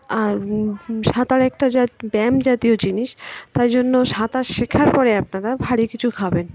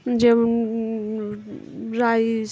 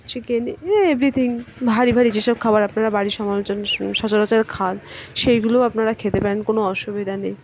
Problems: constant background noise, background conversations at intervals